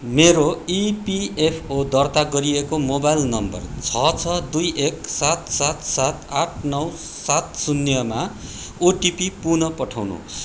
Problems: none marked